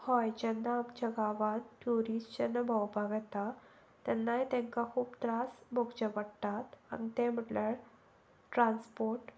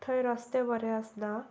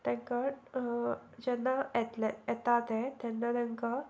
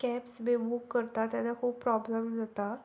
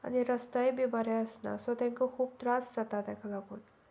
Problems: none marked